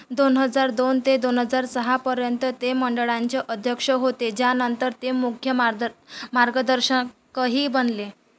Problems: none marked